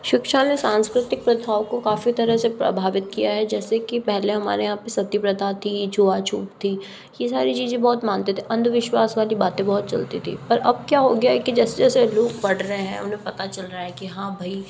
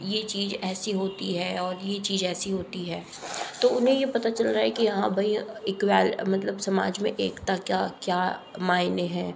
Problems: background sounds at intervals